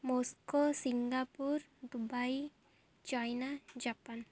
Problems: low volume